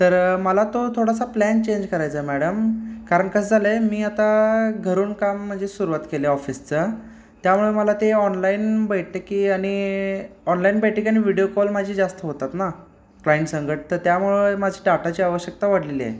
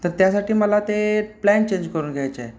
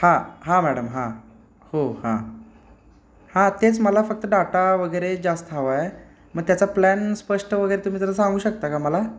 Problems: none marked